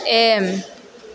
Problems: constant background noise